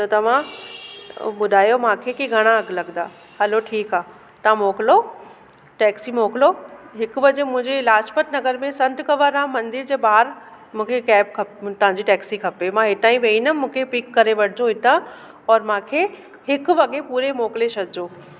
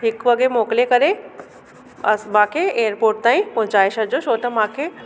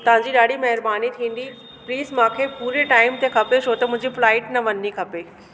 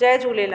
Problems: constant background noise, echo